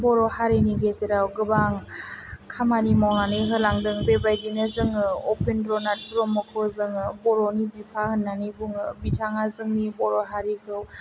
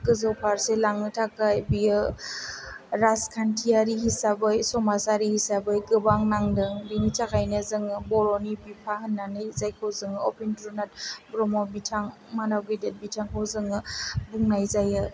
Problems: low volume